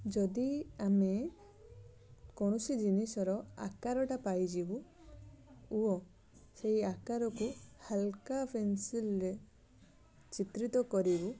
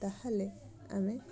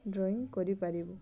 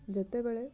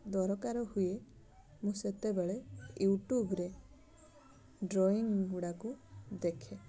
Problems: constant background noise